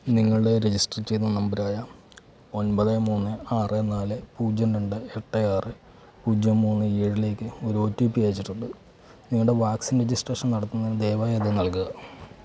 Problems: low volume